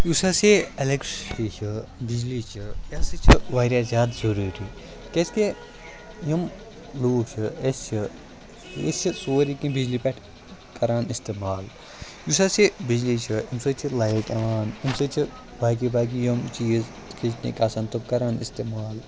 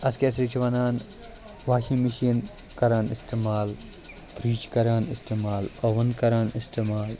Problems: constant background noise, continuous background conversations